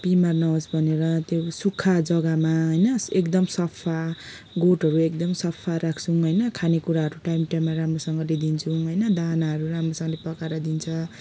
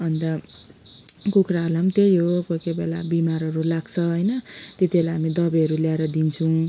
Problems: background sounds at intervals, background conversations at intervals